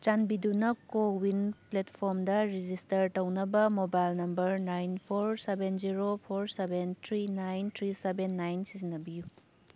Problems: background sounds at intervals